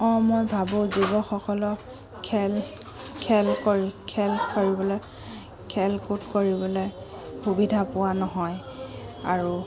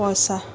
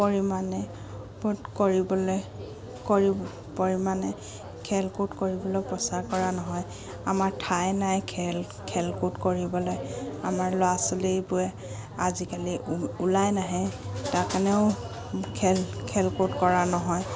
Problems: background sounds at intervals